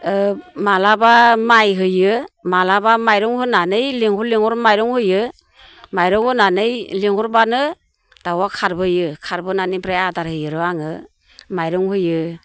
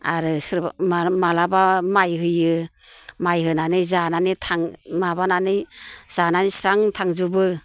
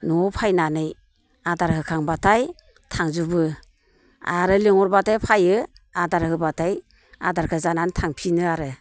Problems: constant background noise